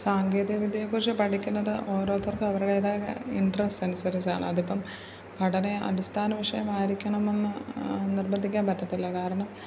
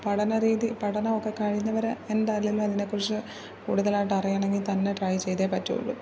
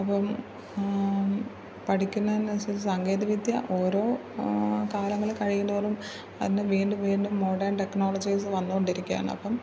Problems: none marked